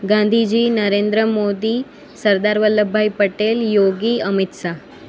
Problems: constant background noise